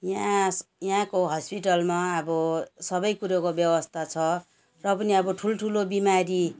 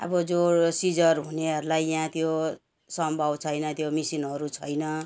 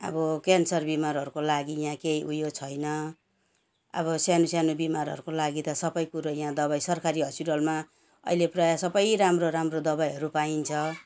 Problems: background sounds at intervals